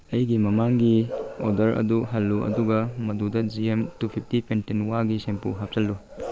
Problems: background sounds at intervals